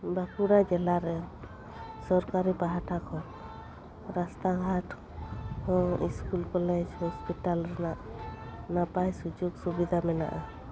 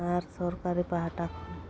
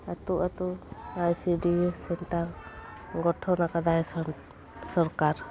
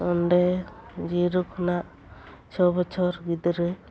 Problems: background sounds at intervals